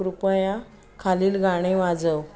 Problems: background sounds at intervals, continuous background conversations